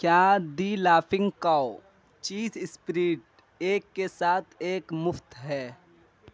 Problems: none marked